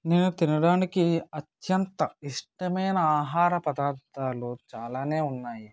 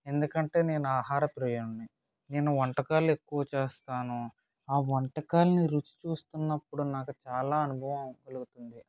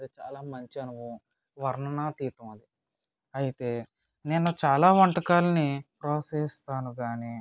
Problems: none marked